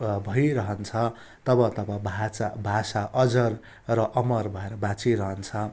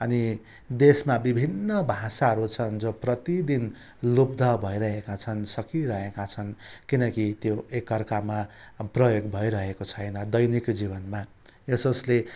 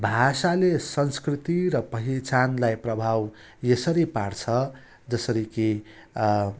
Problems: constant background noise